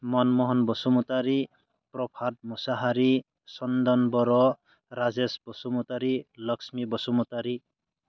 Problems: none marked